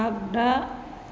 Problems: constant background noise